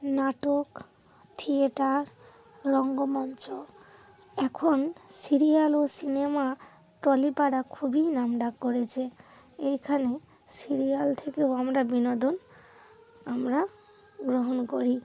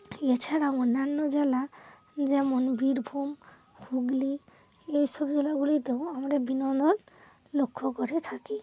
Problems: constant background noise